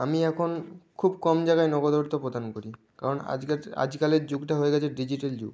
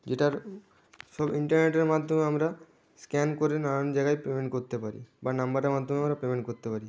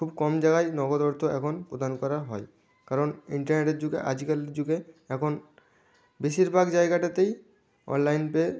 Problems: none marked